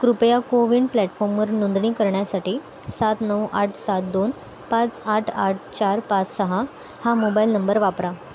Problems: constant background noise, background conversations at intervals